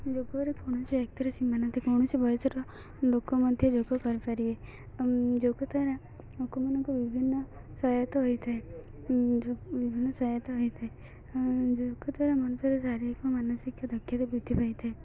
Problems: continuous background conversations, low volume